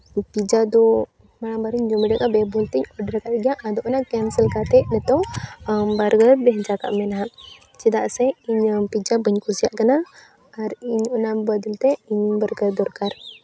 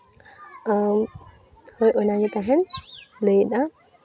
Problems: continuous background conversations